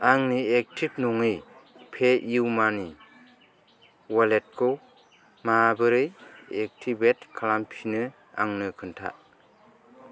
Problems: none marked